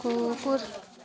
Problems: constant background noise